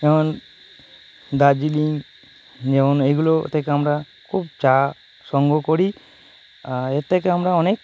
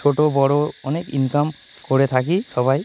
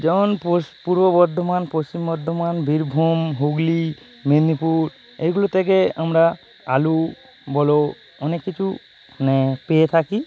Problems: none marked